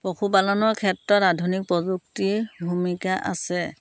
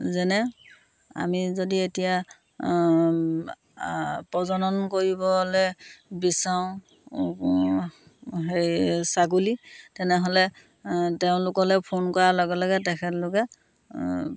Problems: constant background noise